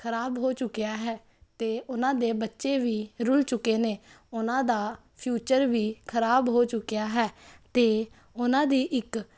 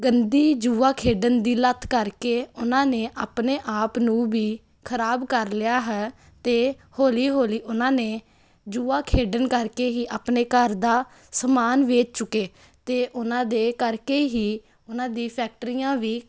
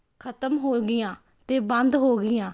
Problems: constant background noise